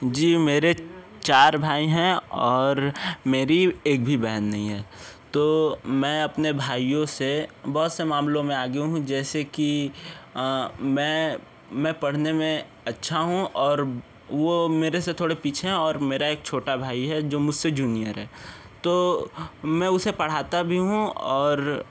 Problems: background conversations at intervals